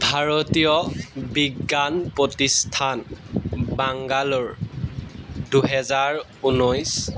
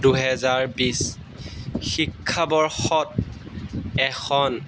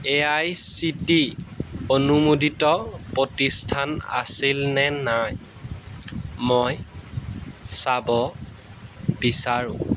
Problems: background sounds at intervals